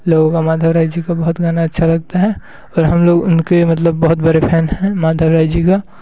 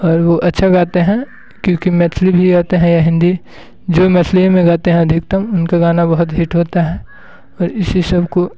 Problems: constant background noise